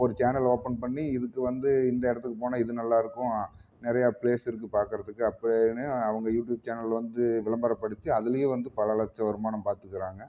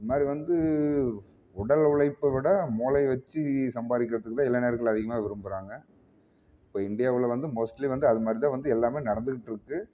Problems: none marked